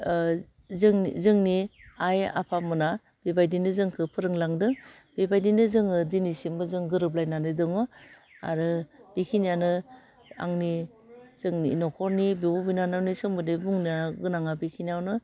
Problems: none marked